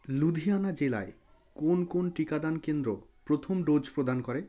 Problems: background conversations at intervals